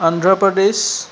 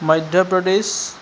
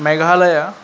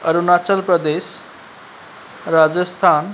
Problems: constant background noise